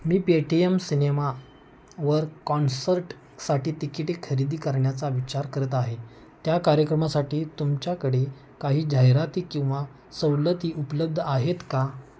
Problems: background sounds at intervals